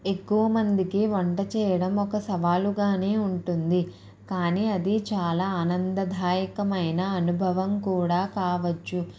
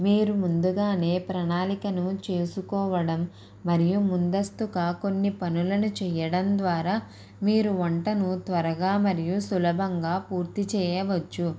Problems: background sounds at intervals